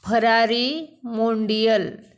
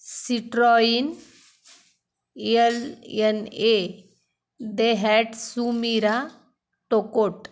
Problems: constant background noise